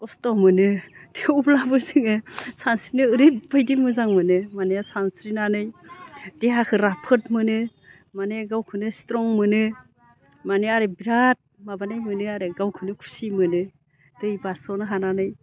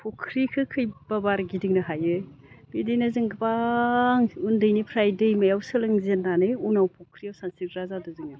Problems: none marked